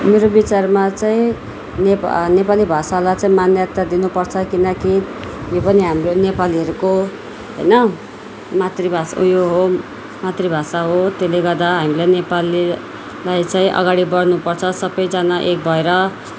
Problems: constant background noise